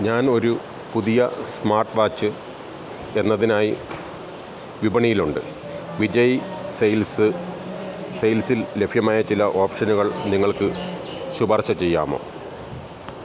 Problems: constant background noise